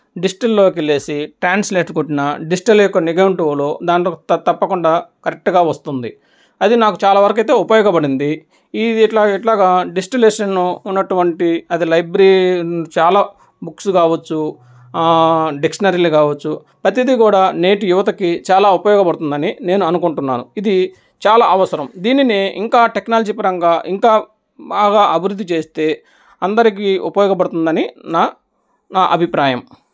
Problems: echo